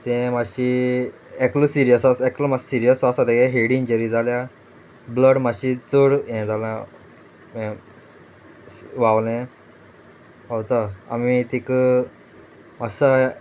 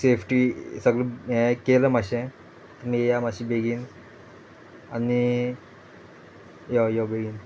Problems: constant background noise